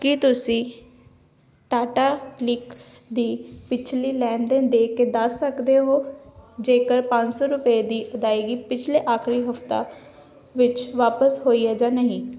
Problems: none marked